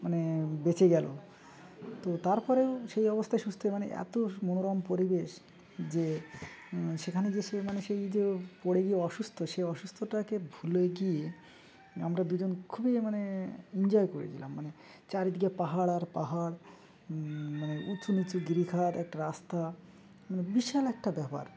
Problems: constant background noise